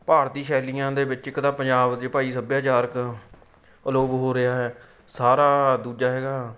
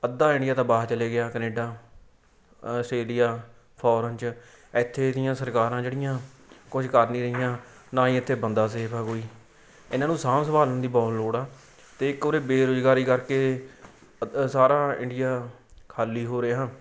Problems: background sounds at intervals